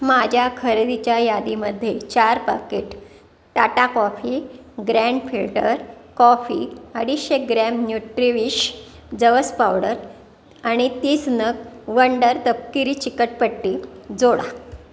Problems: constant background noise, continuous background conversations